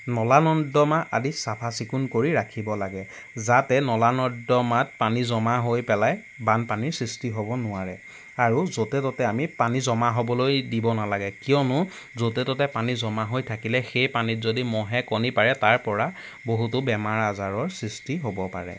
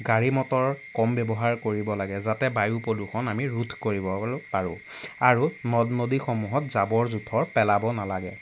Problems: none marked